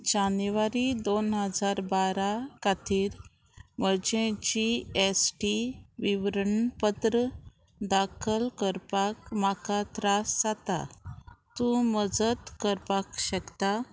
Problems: constant background noise